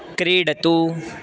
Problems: background sounds at intervals